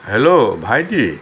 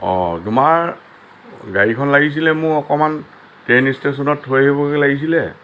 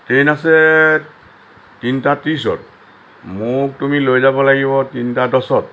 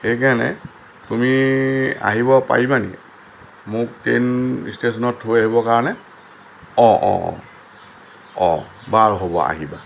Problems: constant background noise